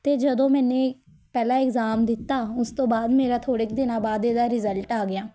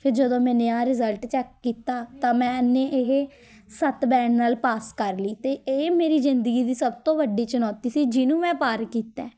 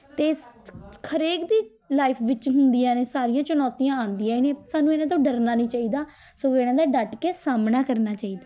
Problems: background conversations at intervals